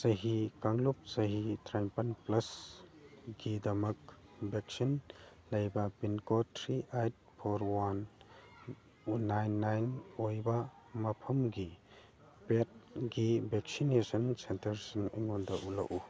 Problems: background sounds at intervals